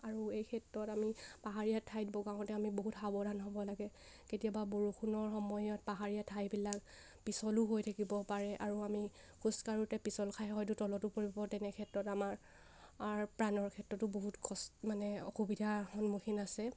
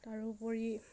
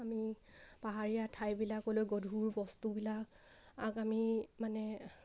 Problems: none marked